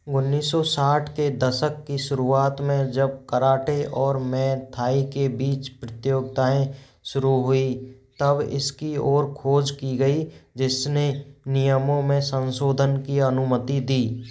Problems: background sounds at intervals